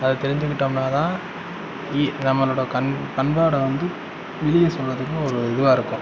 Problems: background sounds at intervals